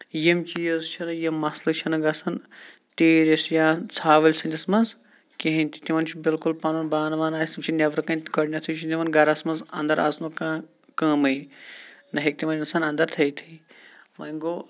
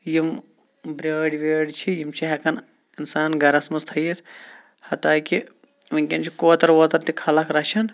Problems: none marked